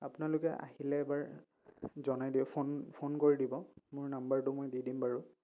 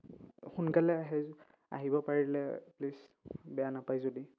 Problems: none marked